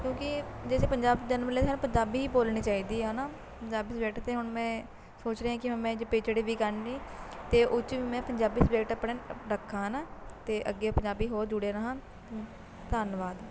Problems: constant background noise